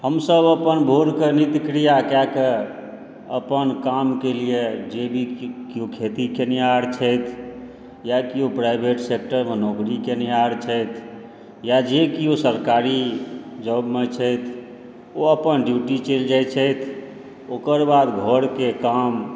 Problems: none marked